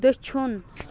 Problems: constant background noise